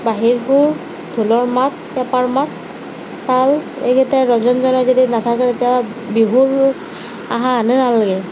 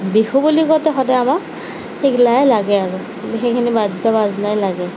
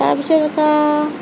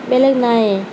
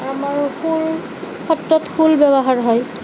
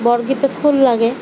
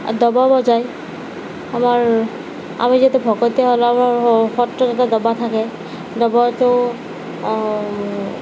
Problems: constant background noise, background conversations at intervals